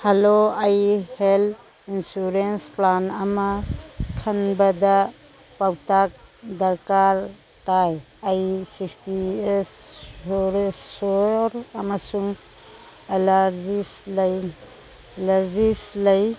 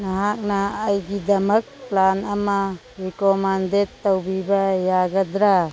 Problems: background conversations at intervals